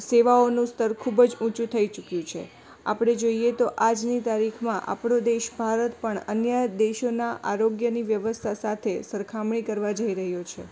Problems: background conversations at intervals